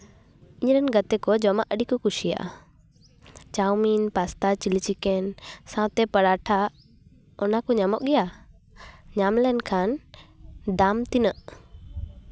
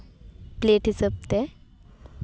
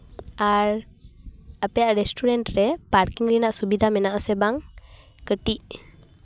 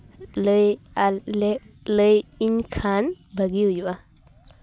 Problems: none marked